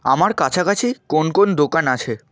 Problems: constant background noise